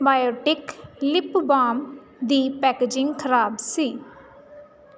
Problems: none marked